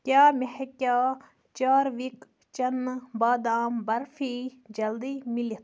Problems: none marked